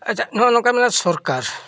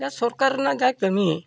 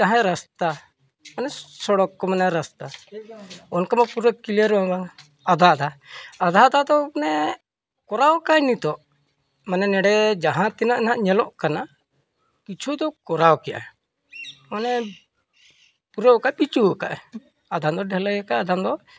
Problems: none marked